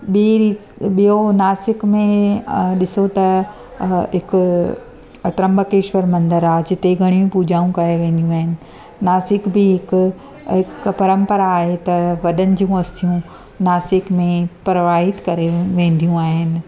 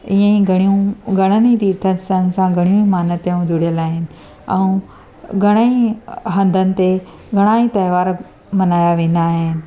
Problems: constant background noise, echo